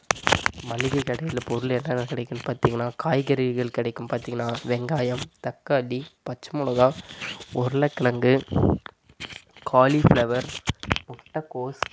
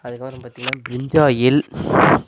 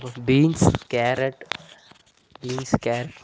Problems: constant background noise, low volume